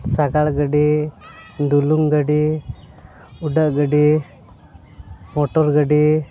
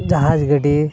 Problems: constant background noise